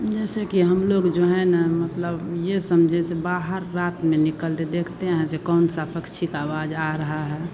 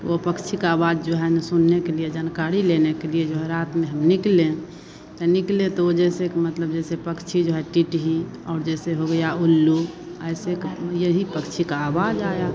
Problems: none marked